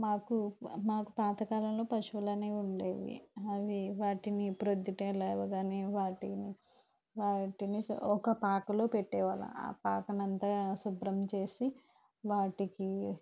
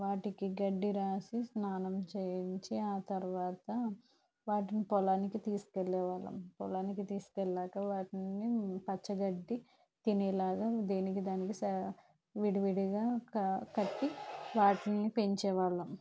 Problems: background sounds at intervals, low volume